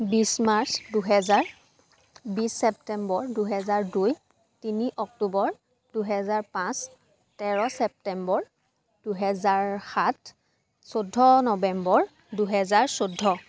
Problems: constant background noise, background conversations at intervals